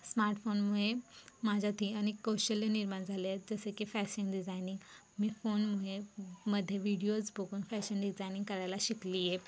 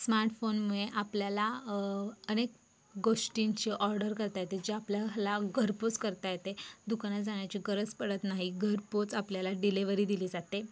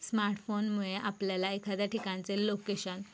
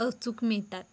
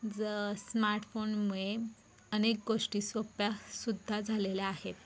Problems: background sounds at intervals